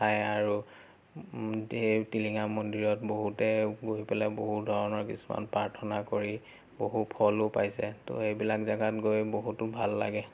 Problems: none marked